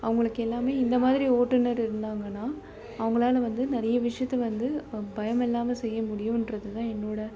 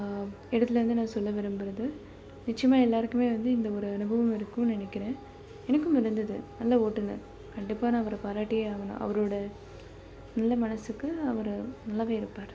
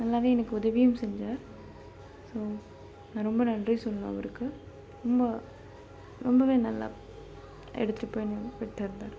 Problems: low volume